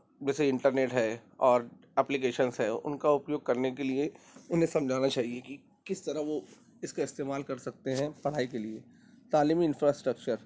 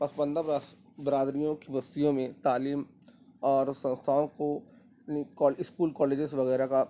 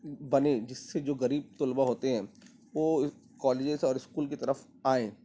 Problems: constant background noise, low volume